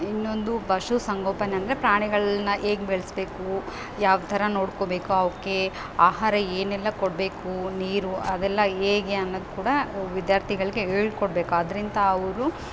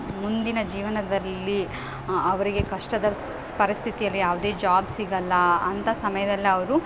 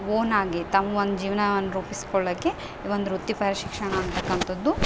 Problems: background sounds at intervals